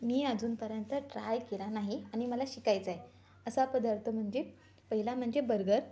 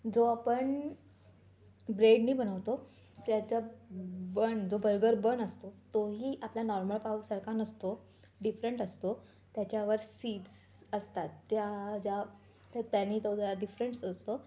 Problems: background sounds at intervals, background conversations at intervals